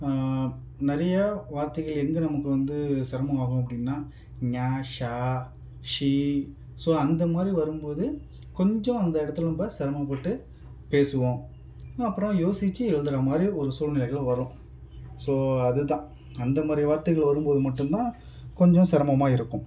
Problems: background sounds at intervals